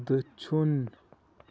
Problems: low volume